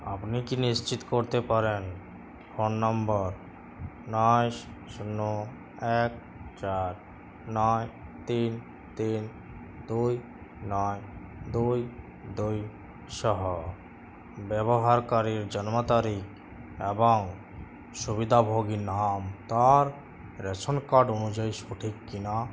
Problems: constant background noise